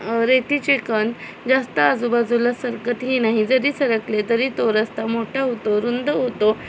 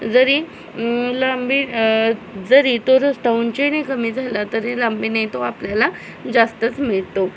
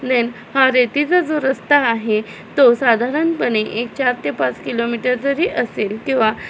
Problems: constant background noise